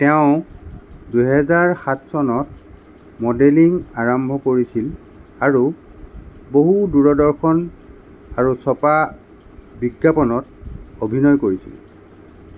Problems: none marked